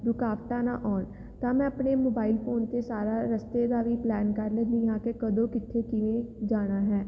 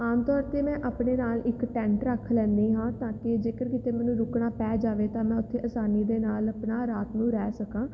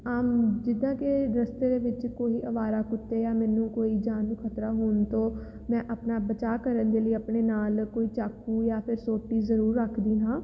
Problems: none marked